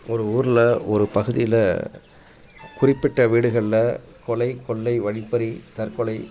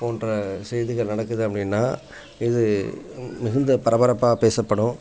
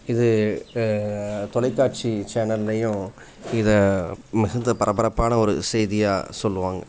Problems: constant background noise, background conversations at intervals